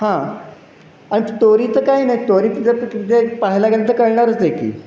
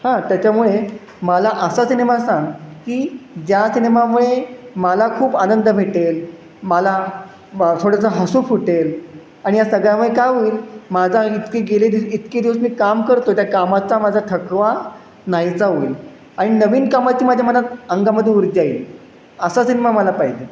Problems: constant background noise